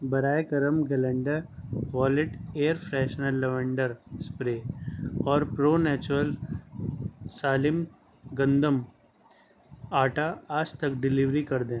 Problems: none marked